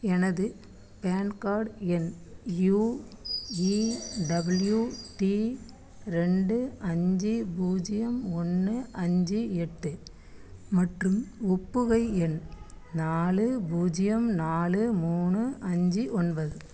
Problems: constant background noise